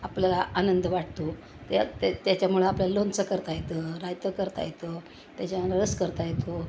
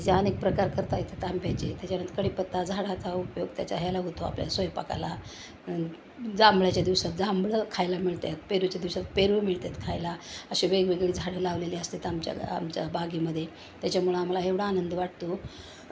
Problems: none marked